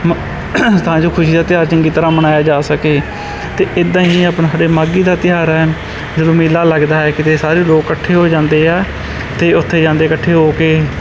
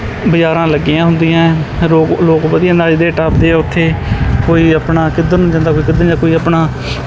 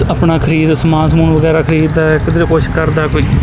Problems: background sounds at intervals